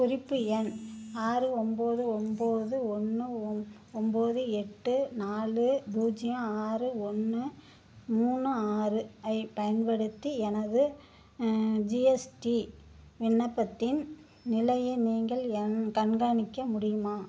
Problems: background sounds at intervals